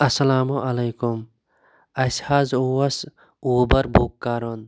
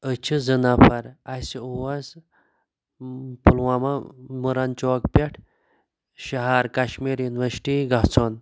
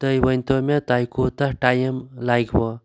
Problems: none marked